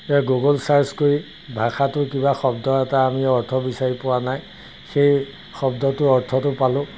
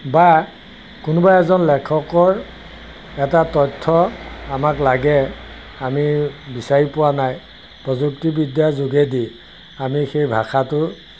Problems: constant background noise